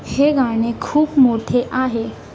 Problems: constant background noise, background conversations at intervals